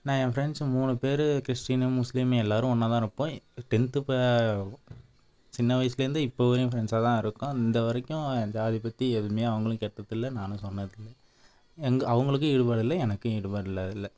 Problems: none marked